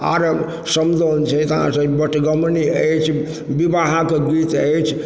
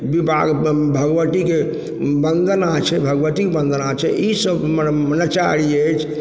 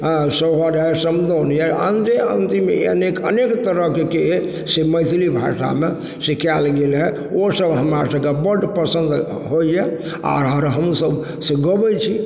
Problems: background sounds at intervals